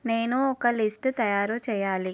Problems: none marked